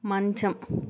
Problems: none marked